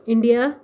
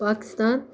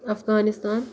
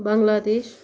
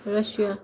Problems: none marked